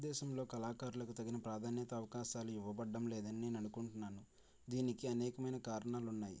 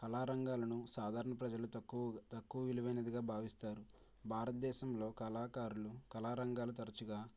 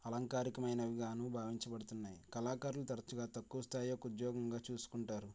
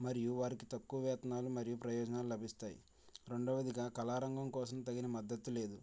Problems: low volume